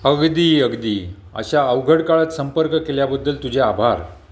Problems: none marked